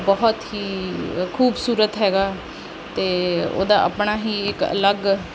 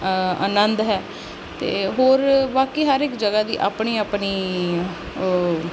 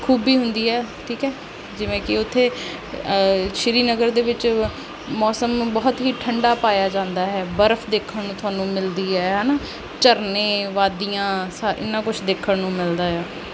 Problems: background sounds at intervals